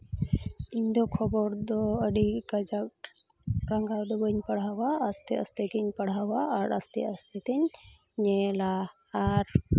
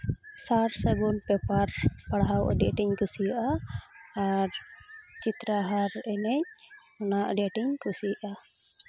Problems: constant background noise, background conversations at intervals